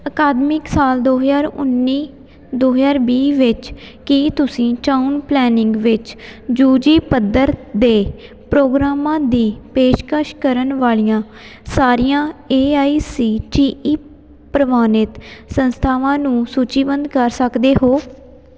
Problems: background sounds at intervals